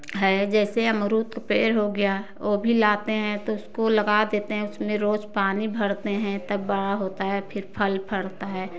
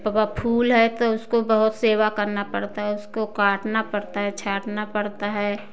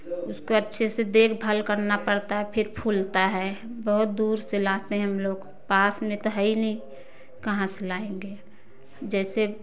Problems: constant background noise